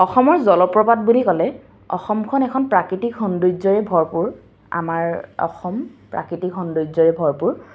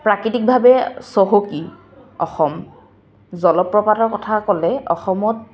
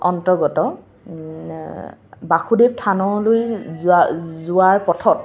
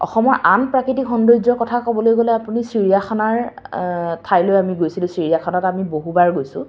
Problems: constant background noise